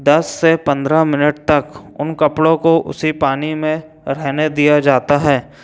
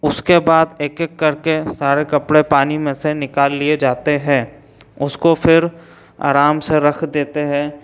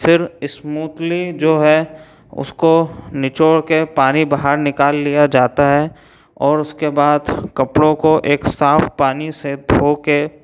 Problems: none marked